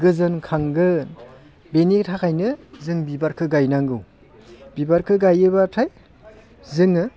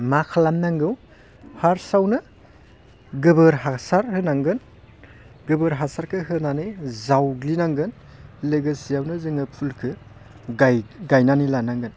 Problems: constant background noise